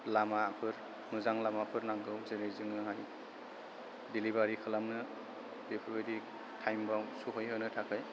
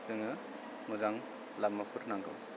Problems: constant background noise